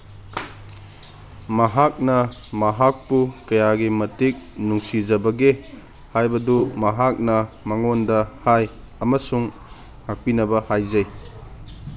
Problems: none marked